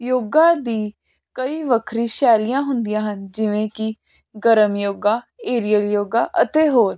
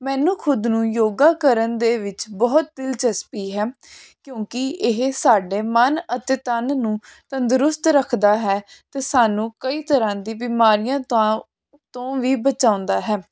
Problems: constant background noise